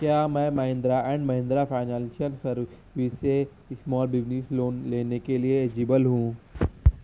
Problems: constant background noise